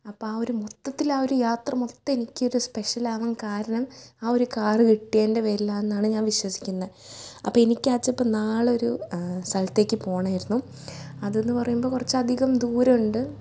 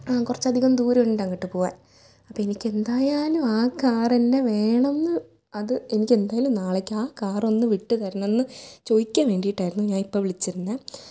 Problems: low volume